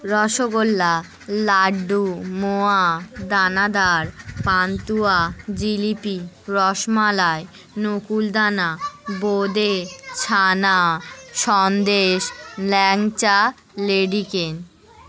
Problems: none marked